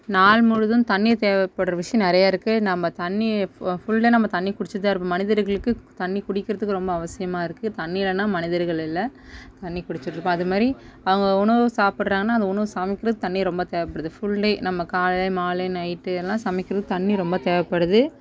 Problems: background sounds at intervals, background conversations at intervals